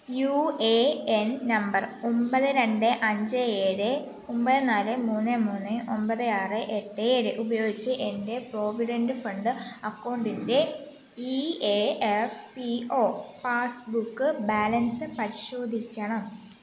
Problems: constant background noise